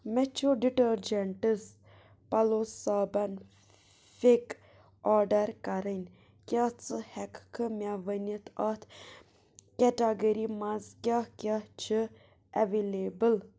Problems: none marked